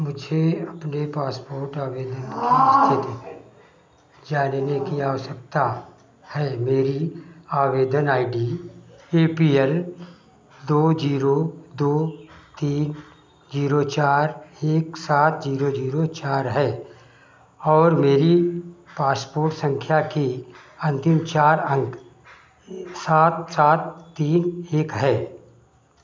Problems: background sounds at intervals, echo